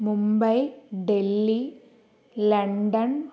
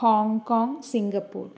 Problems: none marked